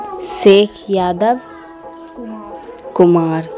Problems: constant background noise